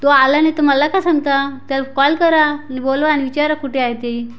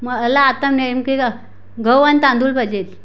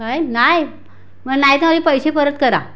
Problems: background sounds at intervals